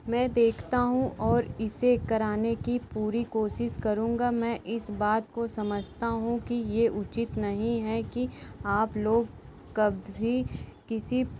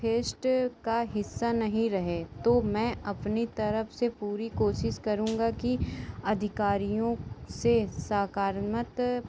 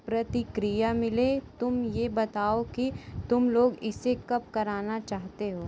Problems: constant background noise